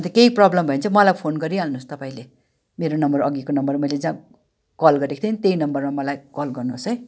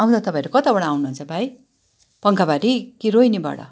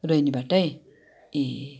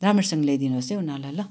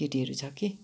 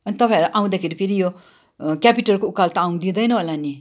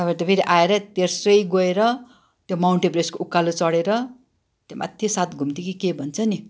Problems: background sounds at intervals